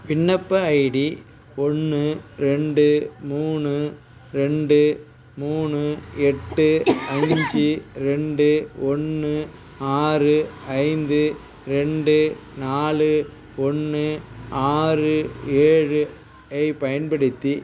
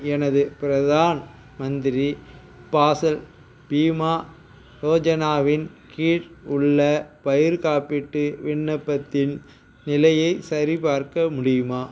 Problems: constant background noise